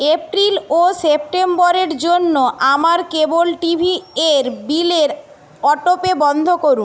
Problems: none marked